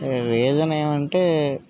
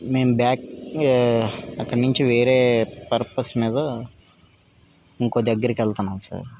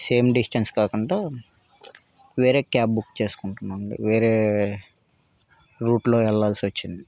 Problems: background sounds at intervals